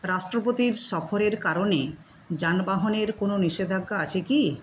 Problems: constant background noise